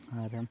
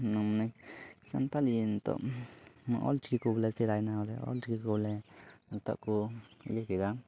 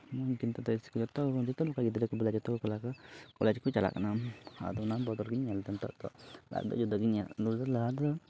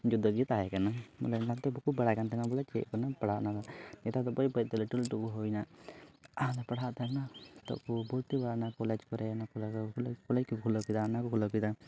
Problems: background sounds at intervals, low volume